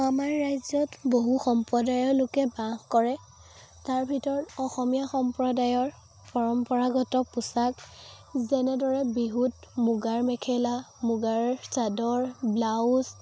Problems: constant background noise, background conversations at intervals